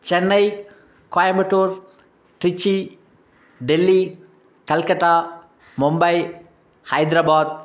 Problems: background sounds at intervals